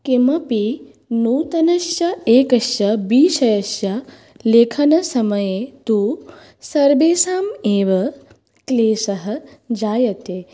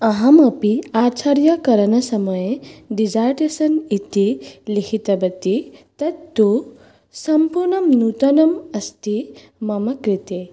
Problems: none marked